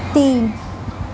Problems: constant background noise